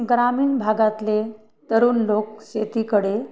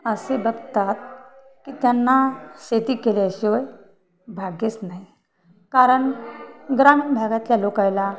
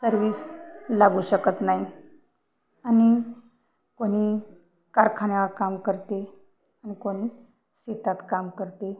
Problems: none marked